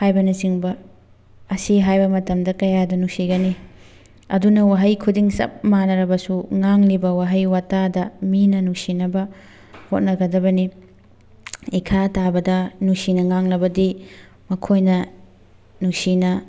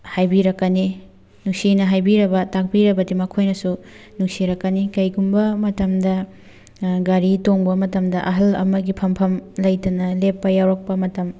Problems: background sounds at intervals